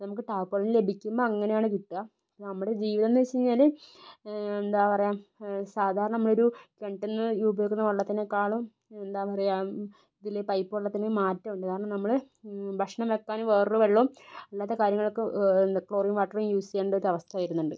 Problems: low volume